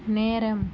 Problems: low volume